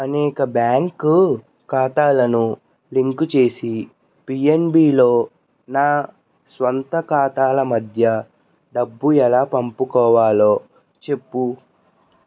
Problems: constant background noise